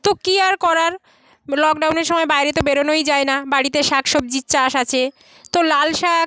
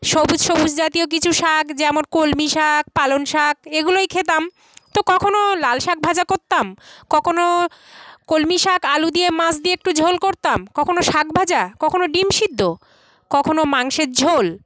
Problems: continuous background conversations